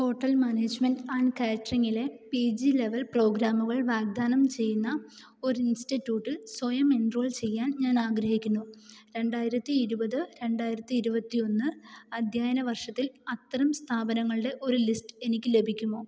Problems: low volume